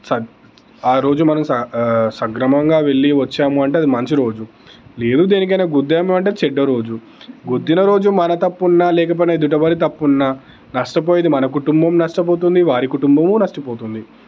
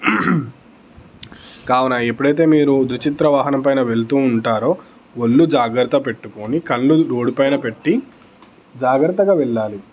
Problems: constant background noise, background conversations at intervals